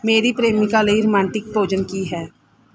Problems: background sounds at intervals